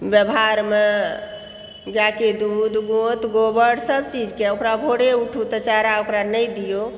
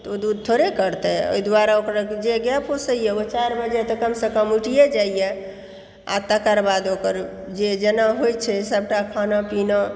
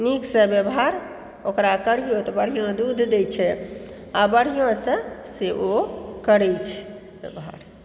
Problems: background sounds at intervals